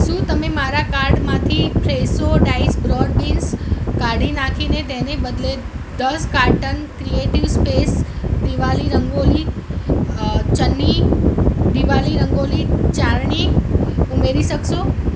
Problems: constant background noise